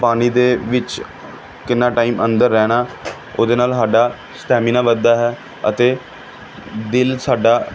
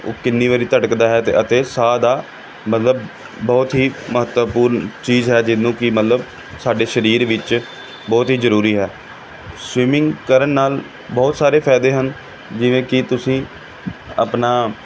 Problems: background sounds at intervals